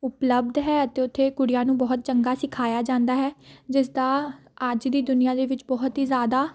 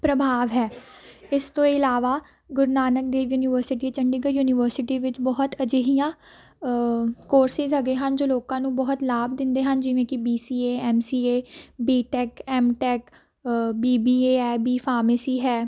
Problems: background conversations at intervals